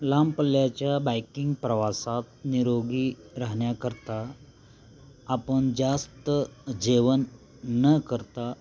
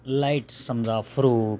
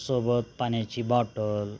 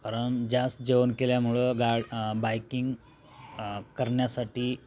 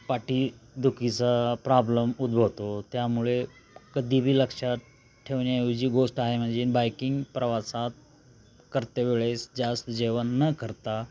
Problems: constant background noise, continuous background conversations